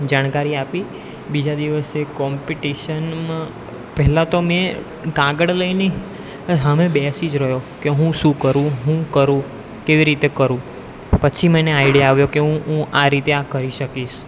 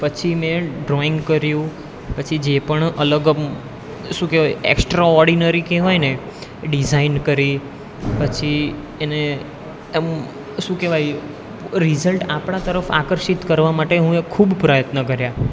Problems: background sounds at intervals